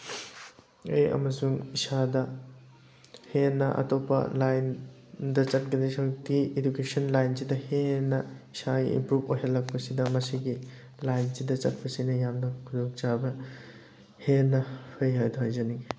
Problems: background sounds at intervals